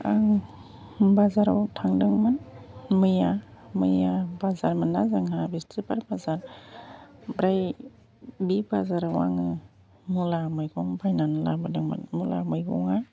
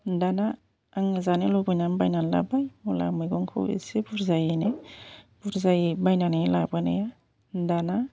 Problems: constant background noise